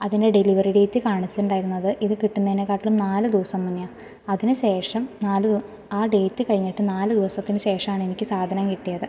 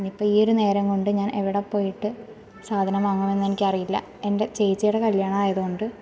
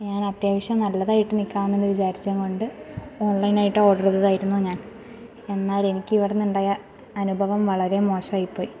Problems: none marked